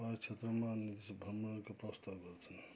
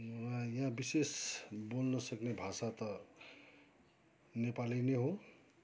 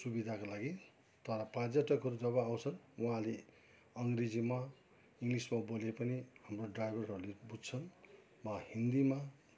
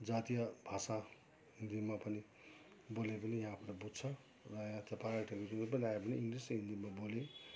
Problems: background sounds at intervals, background conversations at intervals